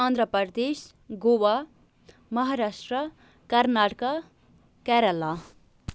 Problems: none marked